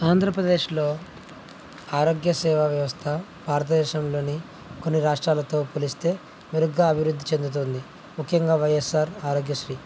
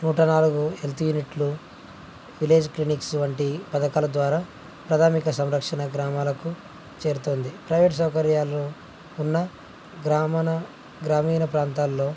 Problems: low volume